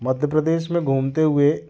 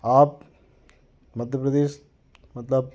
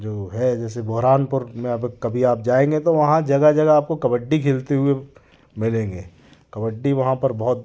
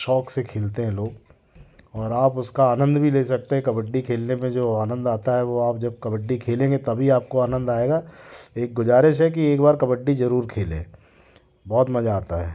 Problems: background sounds at intervals